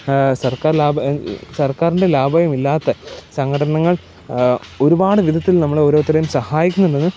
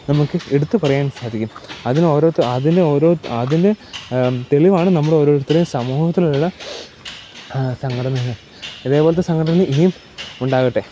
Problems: background sounds at intervals